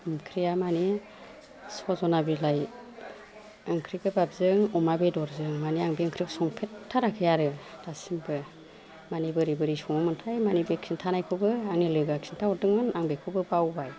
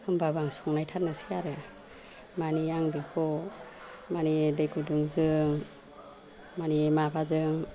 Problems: constant background noise